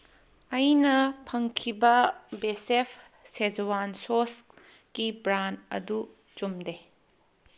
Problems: none marked